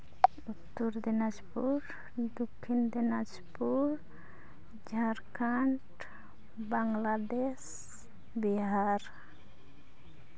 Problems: background sounds at intervals